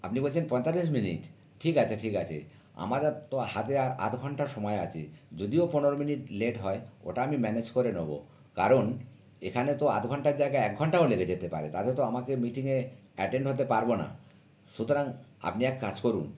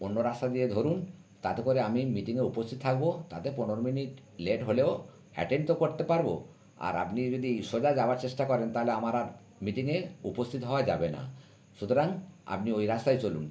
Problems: background sounds at intervals